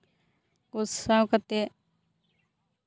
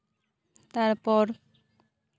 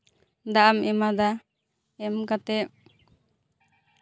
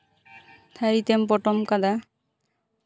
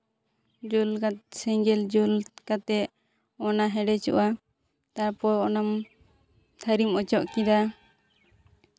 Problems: none marked